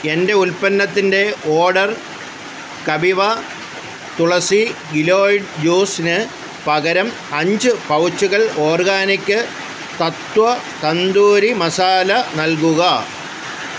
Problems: constant background noise